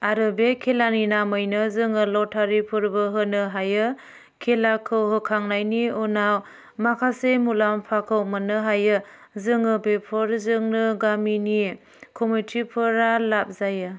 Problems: none marked